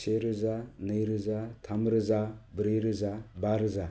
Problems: low volume